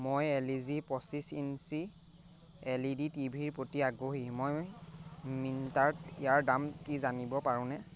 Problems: none marked